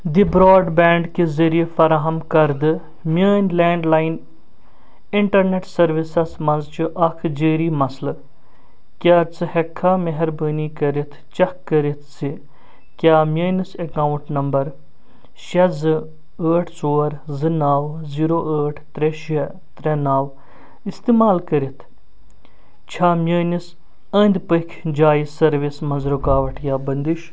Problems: none marked